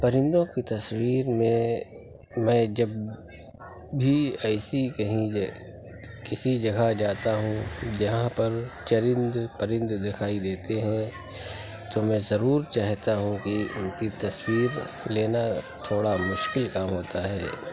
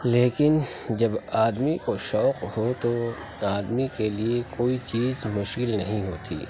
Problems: constant background noise